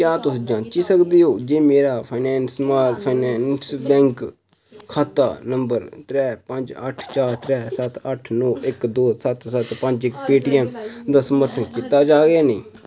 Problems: constant background noise